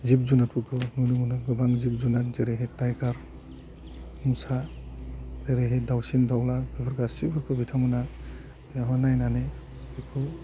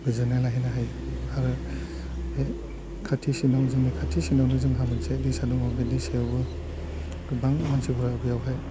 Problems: constant background noise